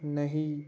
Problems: background sounds at intervals